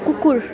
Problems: constant background noise